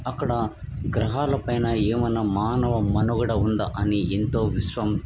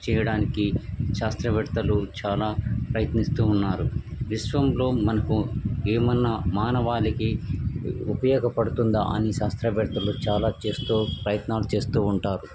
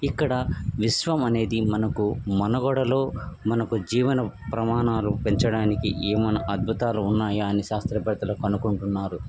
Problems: background sounds at intervals